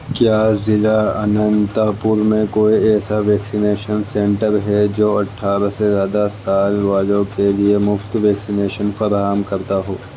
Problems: constant background noise